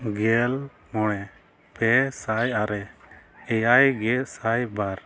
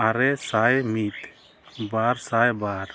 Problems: none marked